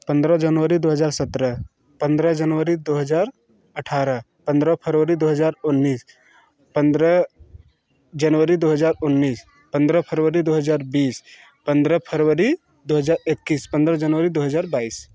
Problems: none marked